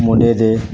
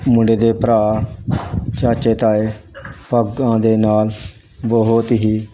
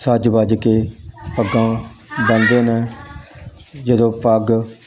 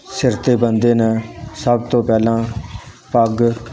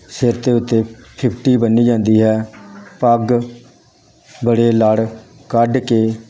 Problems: constant background noise